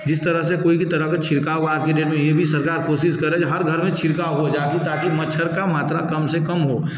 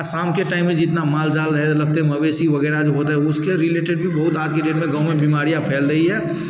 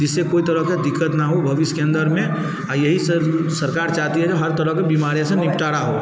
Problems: background sounds at intervals